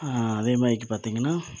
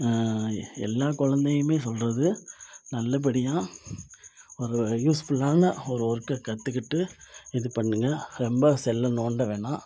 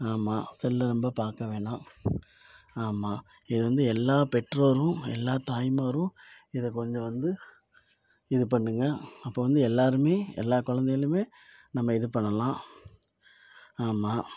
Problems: none marked